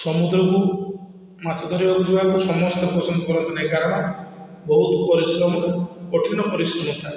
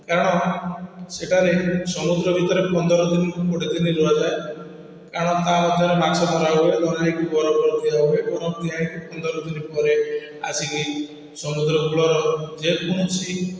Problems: constant background noise, echo